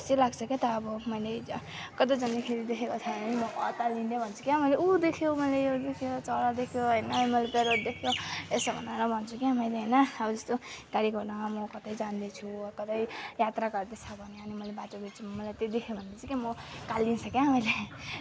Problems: constant background noise